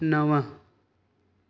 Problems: none marked